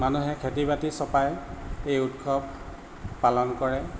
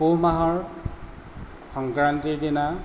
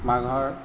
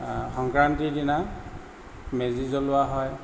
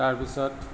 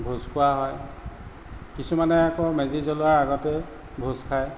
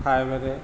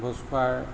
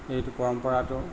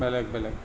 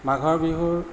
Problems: none marked